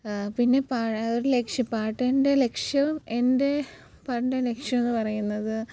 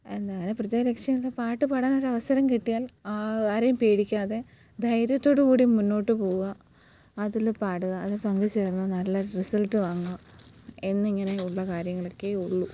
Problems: background sounds at intervals, low volume